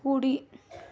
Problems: none marked